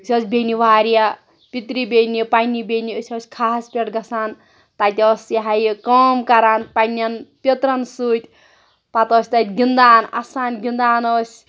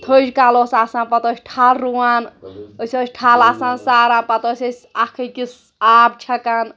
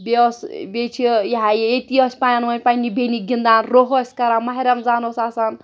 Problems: none marked